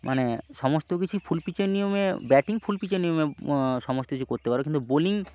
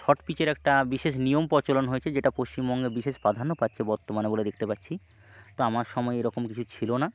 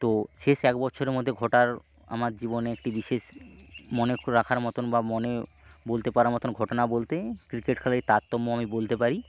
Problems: constant background noise, low volume